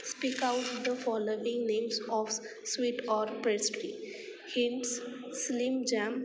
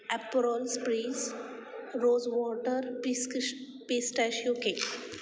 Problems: background sounds at intervals